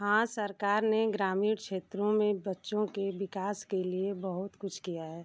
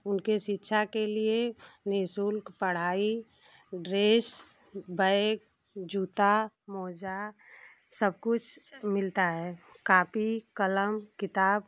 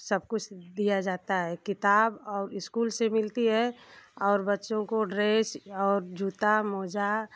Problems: none marked